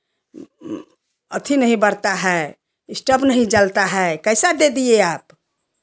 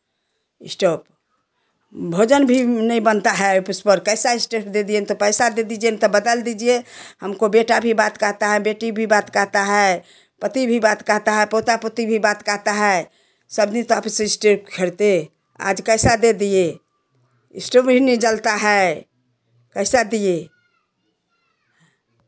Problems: background sounds at intervals